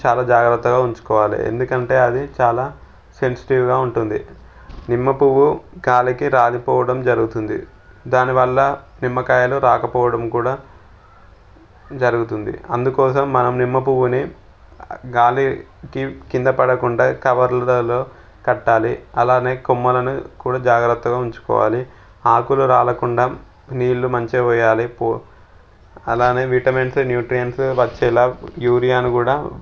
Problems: background sounds at intervals